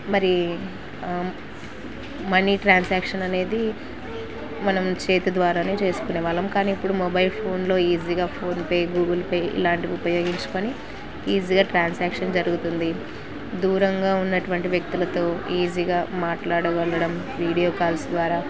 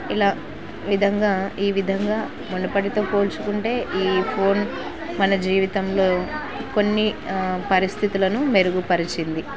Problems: constant background noise